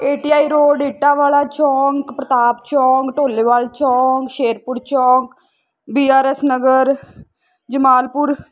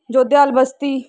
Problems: constant background noise